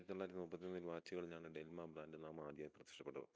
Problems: low volume